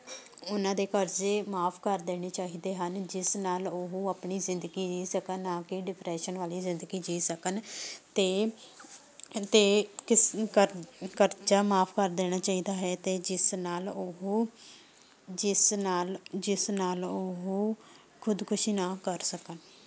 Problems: none marked